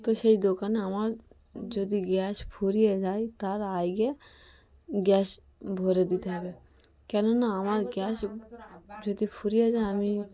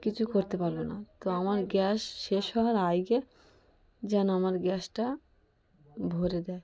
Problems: continuous background conversations